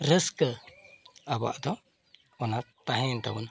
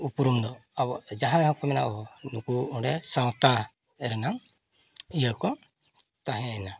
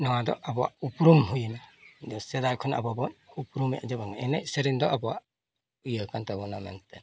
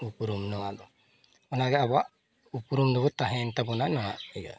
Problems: constant background noise, background conversations at intervals